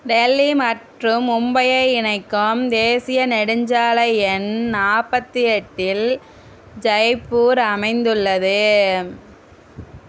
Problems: none marked